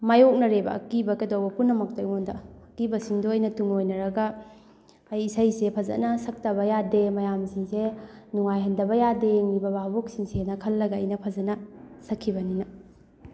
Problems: background conversations at intervals